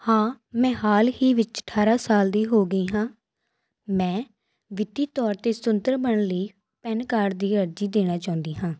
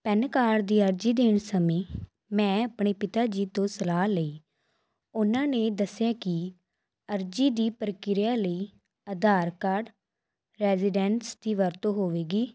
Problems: background sounds at intervals